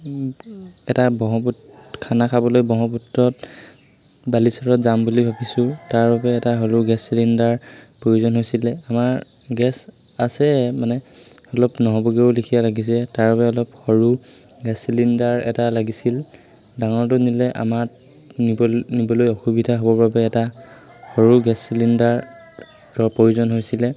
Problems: constant background noise, background conversations at intervals